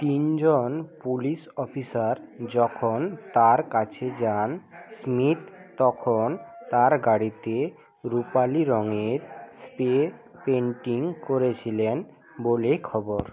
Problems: background sounds at intervals